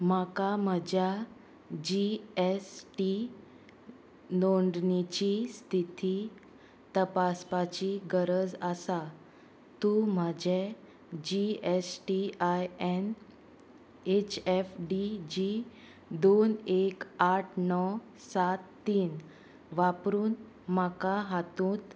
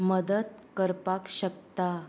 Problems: constant background noise